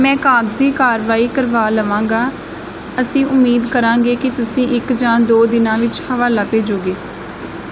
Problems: none marked